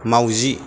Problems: constant background noise